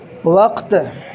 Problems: constant background noise